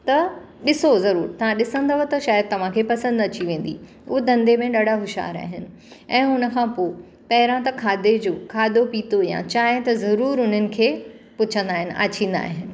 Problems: constant background noise